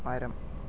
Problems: low volume